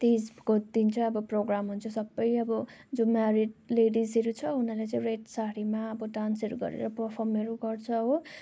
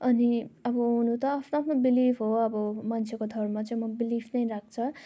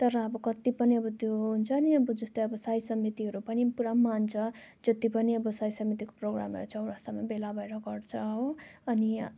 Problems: constant background noise